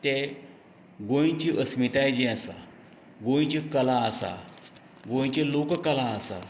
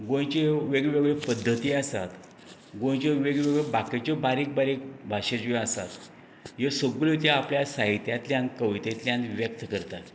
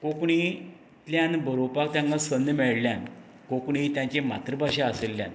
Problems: none marked